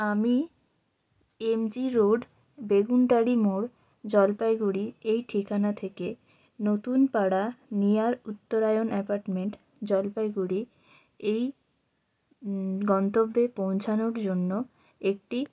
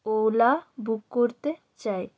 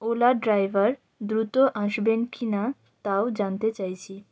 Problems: none marked